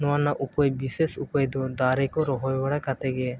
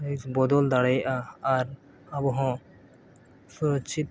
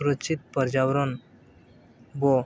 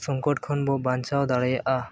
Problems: background sounds at intervals